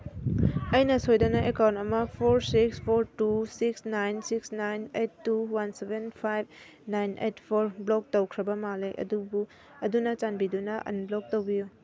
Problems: none marked